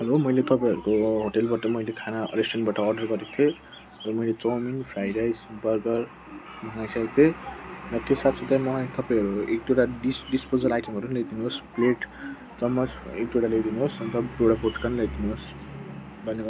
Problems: background sounds at intervals